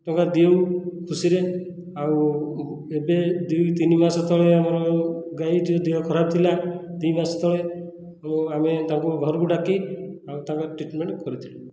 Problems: none marked